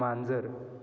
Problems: constant background noise